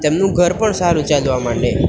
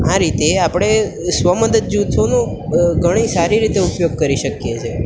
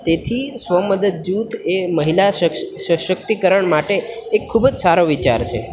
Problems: none marked